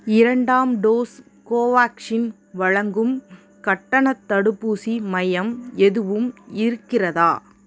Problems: none marked